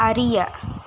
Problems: constant background noise